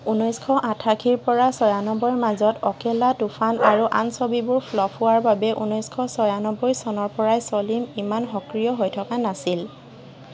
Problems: background sounds at intervals